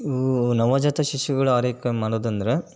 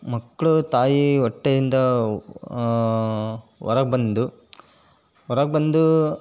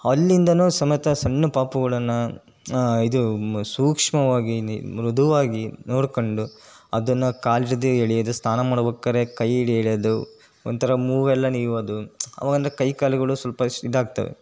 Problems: none marked